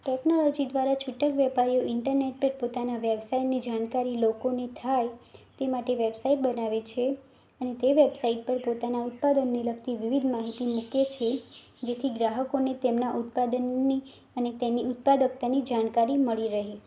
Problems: none marked